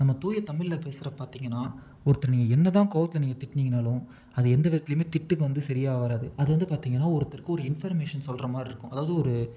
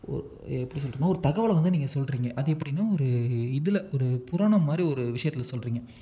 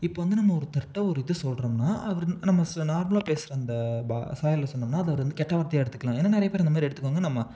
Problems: none marked